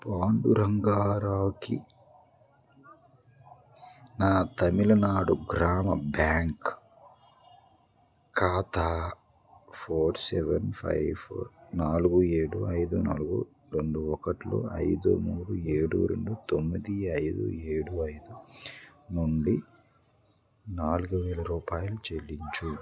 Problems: background conversations at intervals